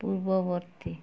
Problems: low volume